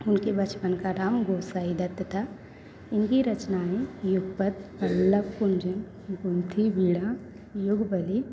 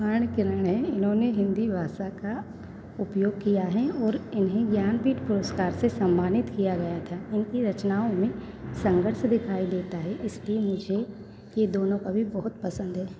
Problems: none marked